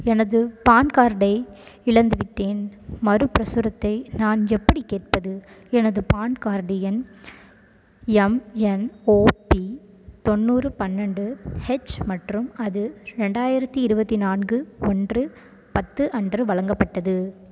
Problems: constant background noise